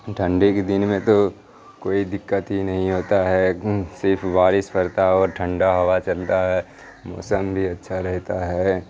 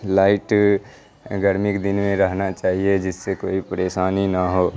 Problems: constant background noise, background conversations at intervals